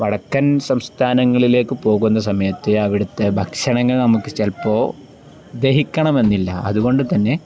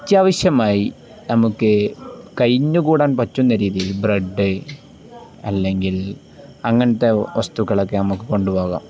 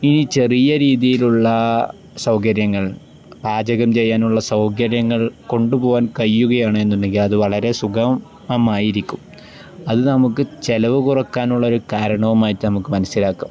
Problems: none marked